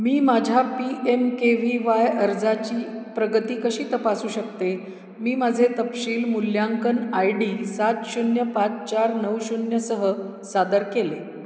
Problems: none marked